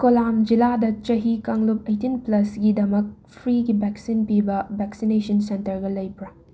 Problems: constant background noise